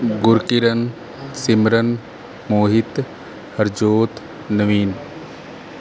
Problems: background sounds at intervals